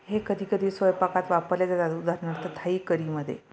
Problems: none marked